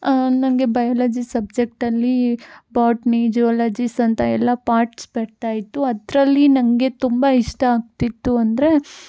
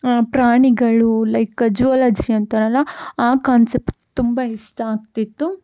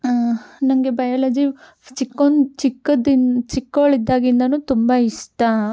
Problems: none marked